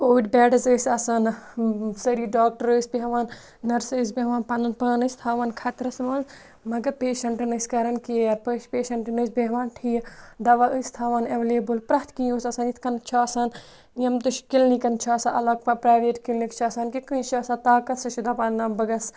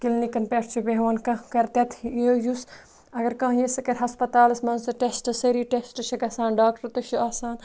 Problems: none marked